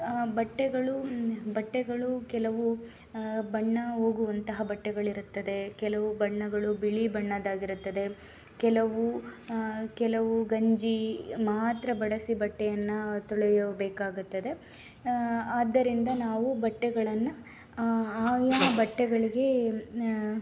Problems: background sounds at intervals